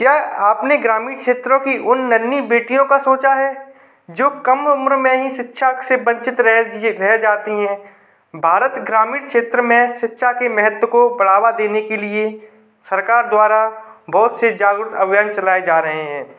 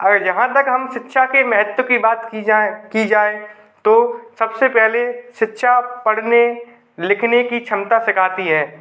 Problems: background sounds at intervals